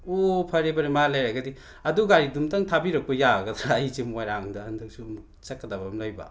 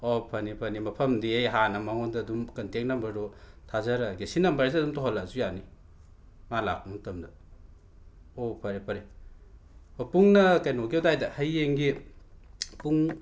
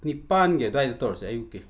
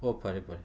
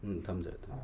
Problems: background sounds at intervals